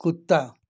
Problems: constant background noise